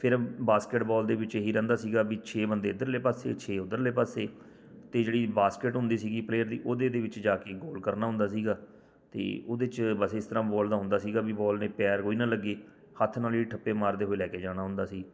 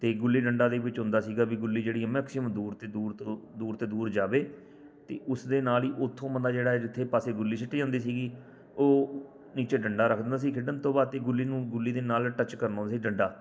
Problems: none marked